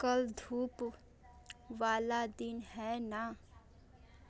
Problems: constant background noise, continuous background conversations